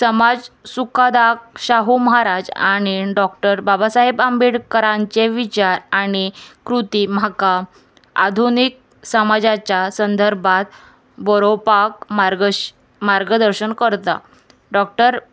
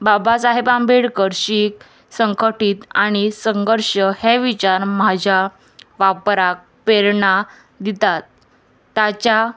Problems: constant background noise